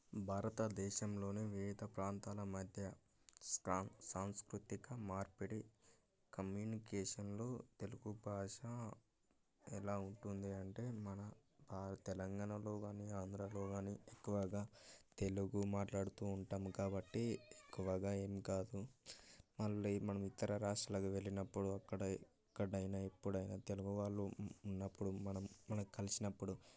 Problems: background conversations at intervals, low volume